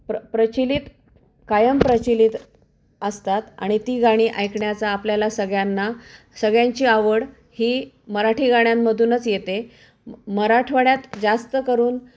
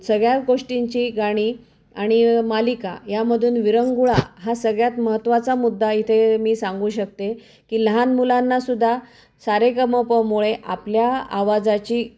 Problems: none marked